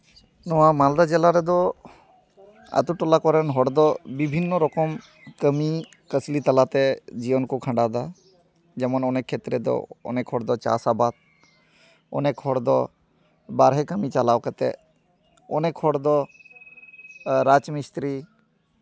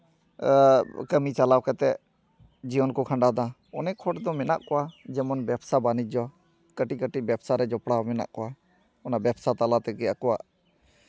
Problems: background sounds at intervals